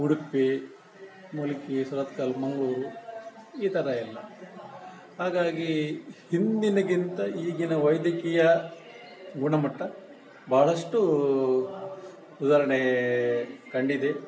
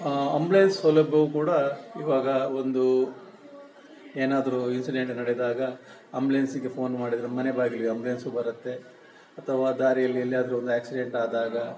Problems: background sounds at intervals